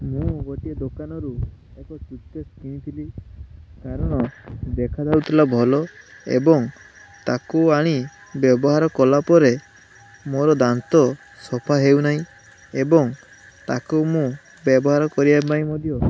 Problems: none marked